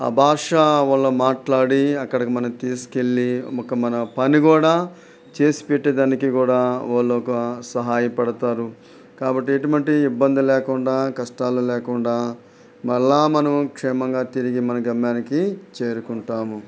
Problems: none marked